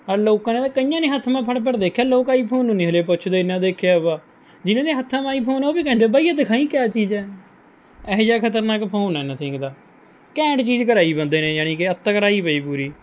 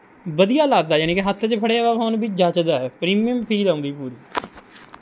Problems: none marked